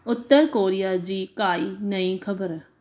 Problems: constant background noise